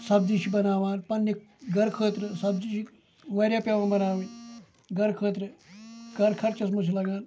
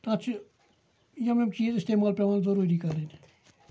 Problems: background sounds at intervals, background conversations at intervals